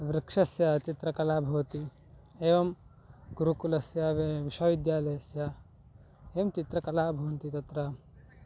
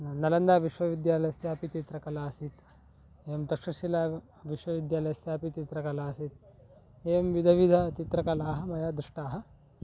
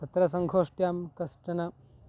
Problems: background sounds at intervals